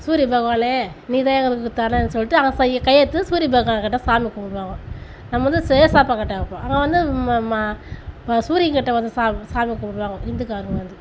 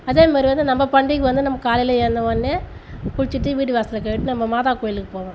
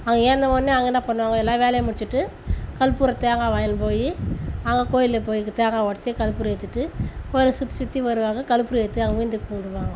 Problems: none marked